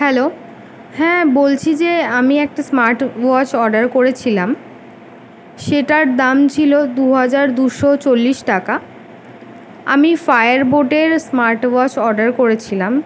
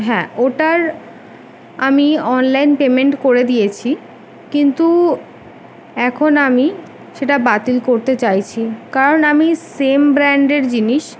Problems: background sounds at intervals